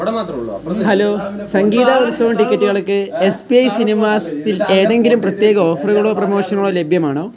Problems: continuous background conversations, low volume